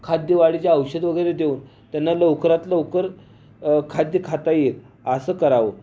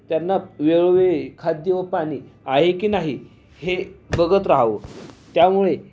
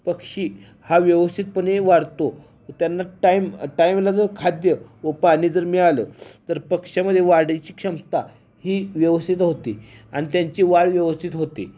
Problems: none marked